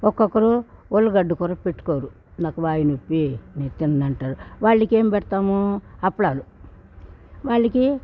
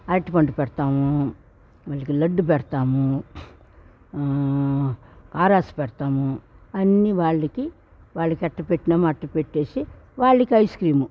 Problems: background sounds at intervals